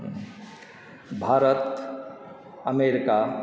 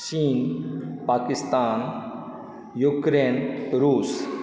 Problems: background conversations at intervals